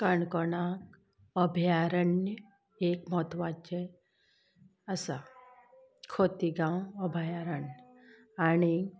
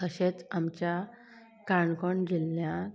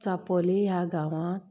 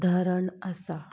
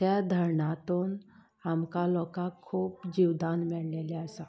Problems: background sounds at intervals